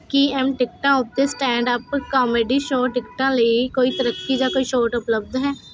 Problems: constant background noise